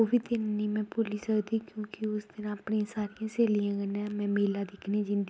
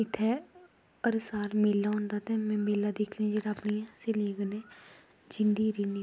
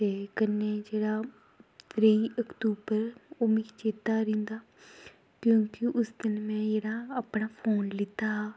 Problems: background sounds at intervals, low volume